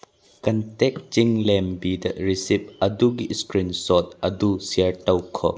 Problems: none marked